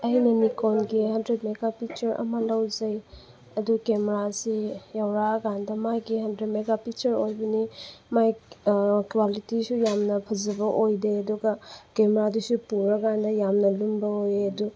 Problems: constant background noise